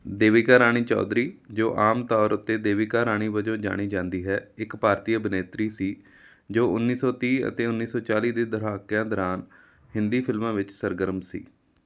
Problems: none marked